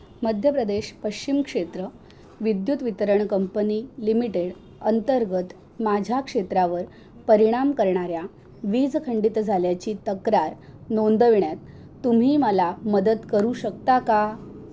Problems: background sounds at intervals